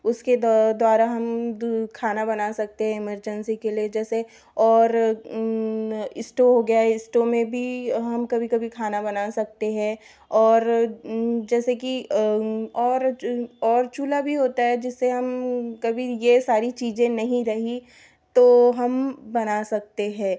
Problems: background sounds at intervals